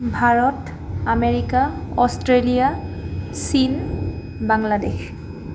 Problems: constant background noise